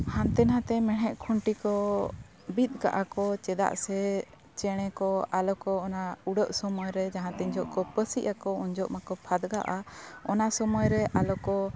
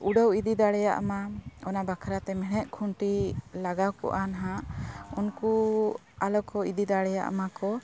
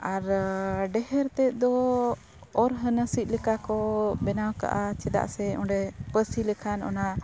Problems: constant background noise